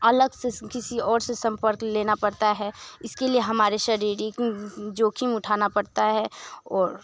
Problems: constant background noise